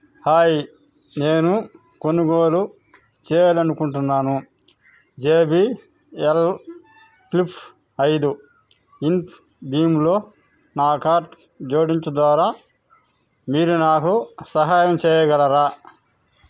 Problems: background sounds at intervals